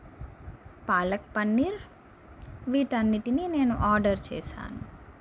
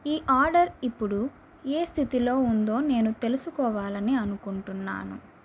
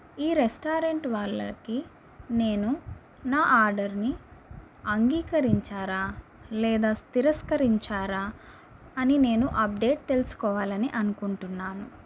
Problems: constant background noise